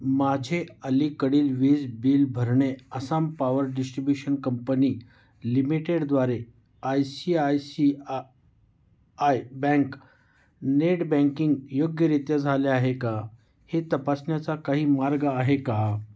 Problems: none marked